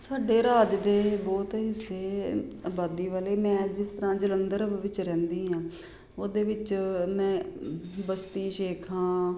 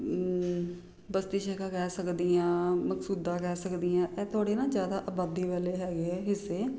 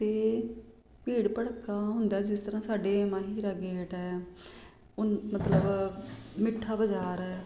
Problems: none marked